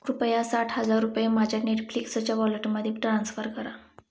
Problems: background sounds at intervals